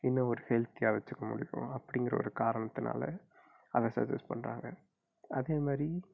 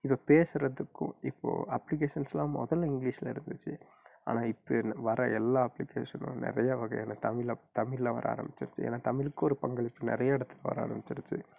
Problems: low volume